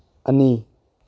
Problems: none marked